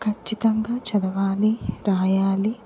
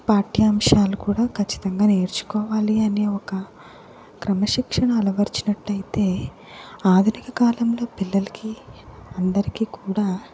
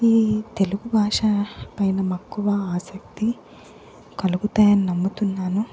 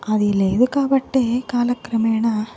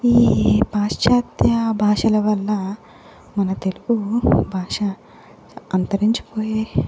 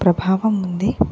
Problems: background sounds at intervals